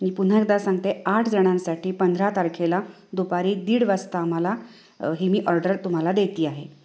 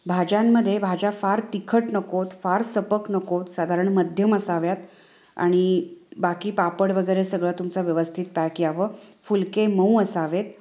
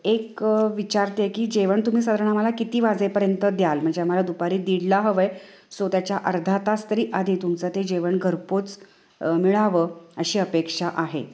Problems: constant background noise, echo